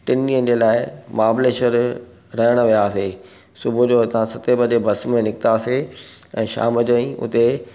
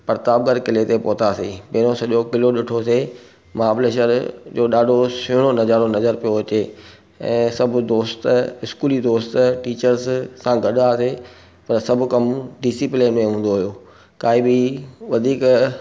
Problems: none marked